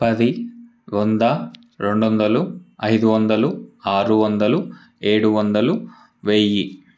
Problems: background sounds at intervals